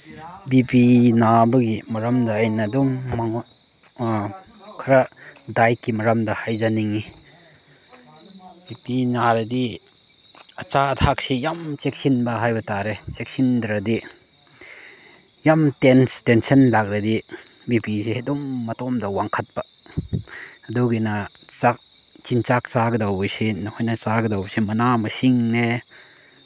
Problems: background sounds at intervals